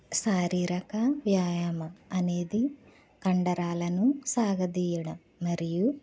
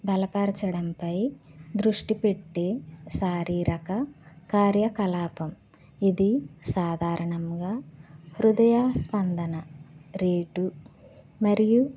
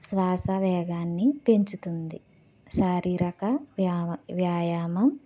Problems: none marked